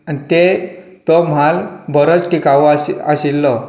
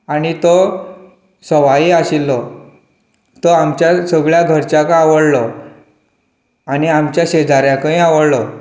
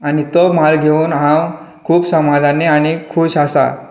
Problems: none marked